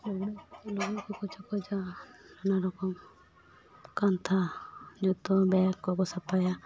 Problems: background sounds at intervals